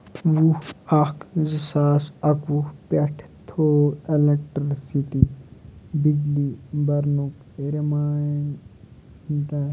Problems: constant background noise, low volume